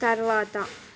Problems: constant background noise